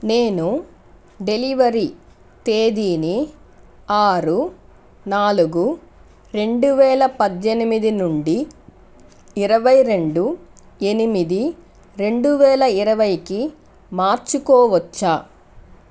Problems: none marked